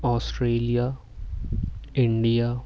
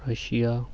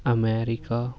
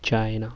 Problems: constant background noise